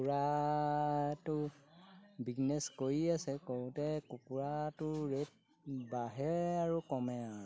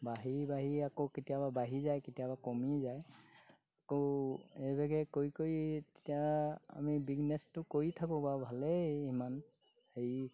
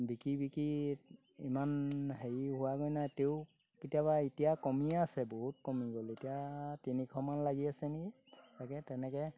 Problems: none marked